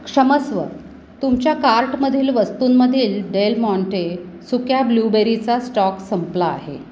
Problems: constant background noise